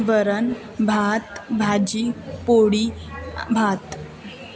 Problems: constant background noise, continuous background conversations